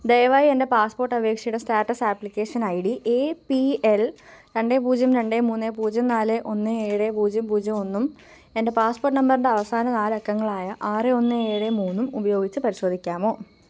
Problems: constant background noise